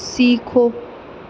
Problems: none marked